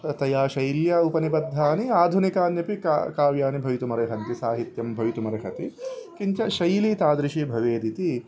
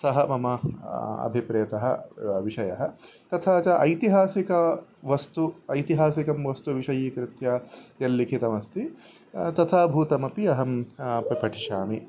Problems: none marked